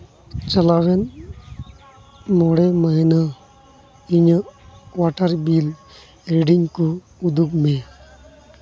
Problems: constant background noise